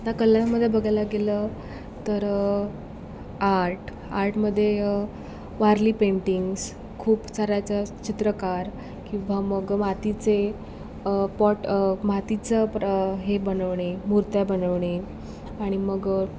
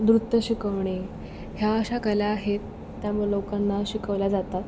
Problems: constant background noise